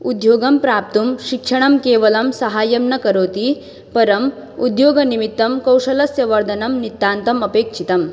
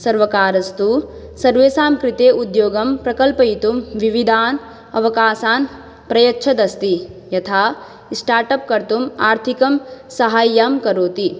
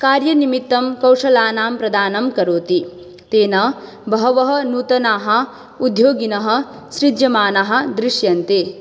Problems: none marked